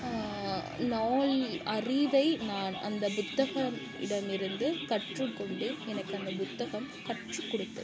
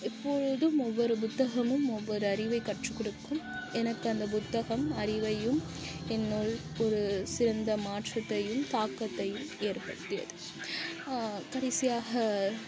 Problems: background sounds at intervals